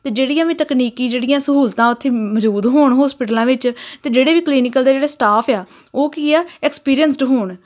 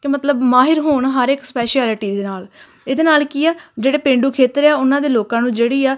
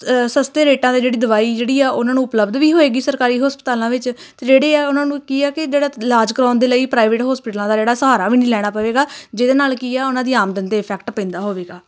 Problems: none marked